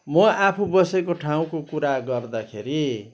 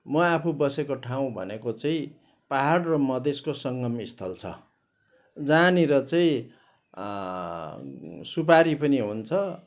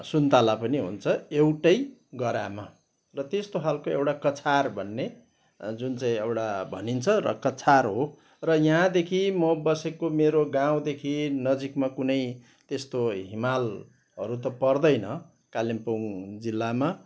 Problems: background sounds at intervals